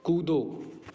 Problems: none marked